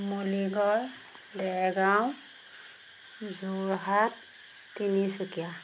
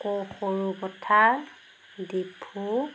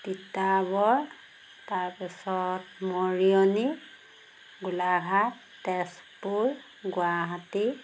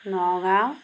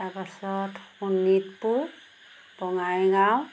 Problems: background sounds at intervals